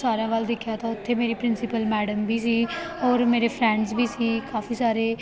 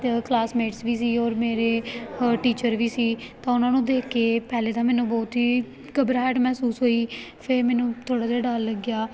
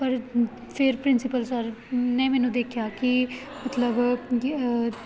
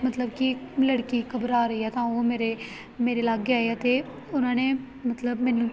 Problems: background sounds at intervals, background conversations at intervals